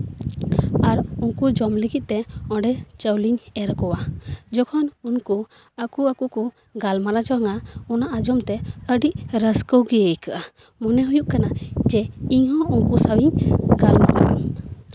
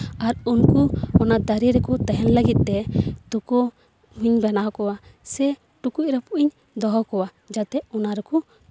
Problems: background sounds at intervals